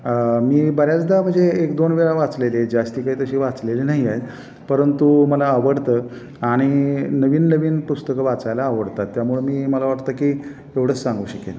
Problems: constant background noise